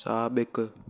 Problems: none marked